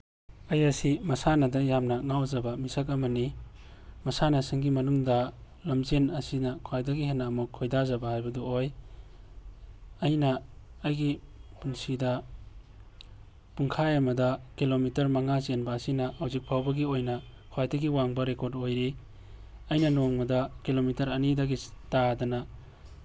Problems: background sounds at intervals